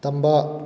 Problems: none marked